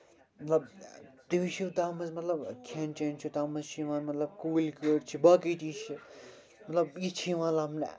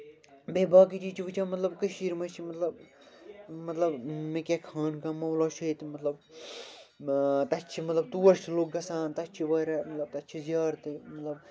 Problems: constant background noise